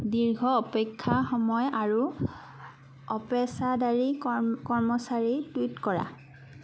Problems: background sounds at intervals